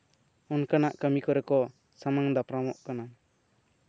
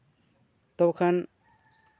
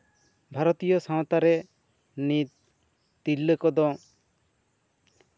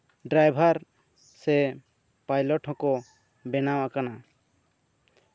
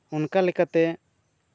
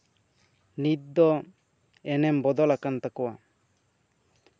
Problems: none marked